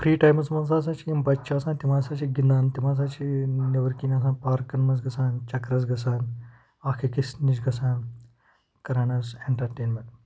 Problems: background sounds at intervals